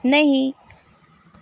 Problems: constant background noise